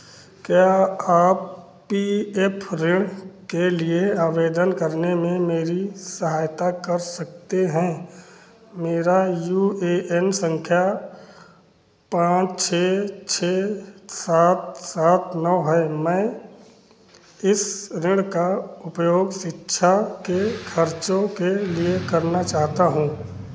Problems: constant background noise